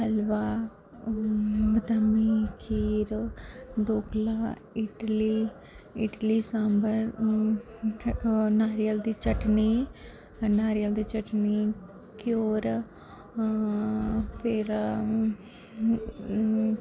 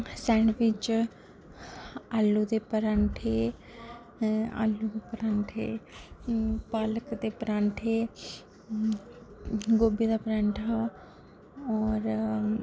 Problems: constant background noise, low volume